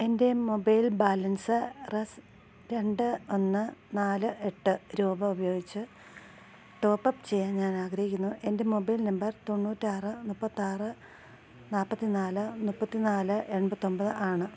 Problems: low volume